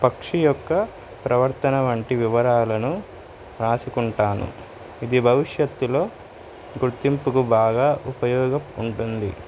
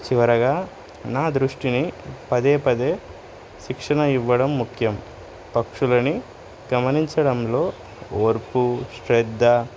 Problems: none marked